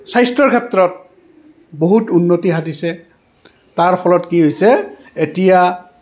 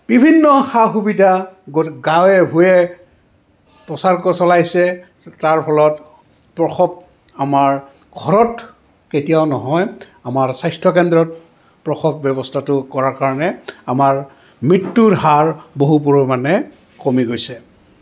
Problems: constant background noise, background conversations at intervals